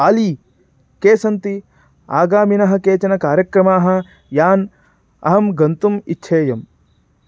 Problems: none marked